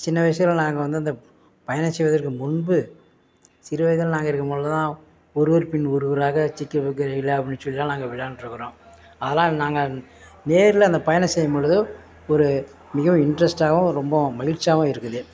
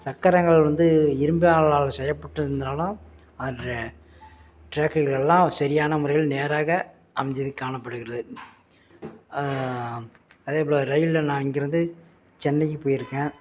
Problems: background sounds at intervals